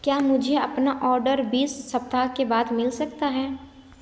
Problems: none marked